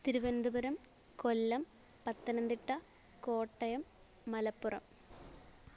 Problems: low volume